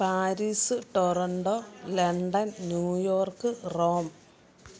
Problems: background sounds at intervals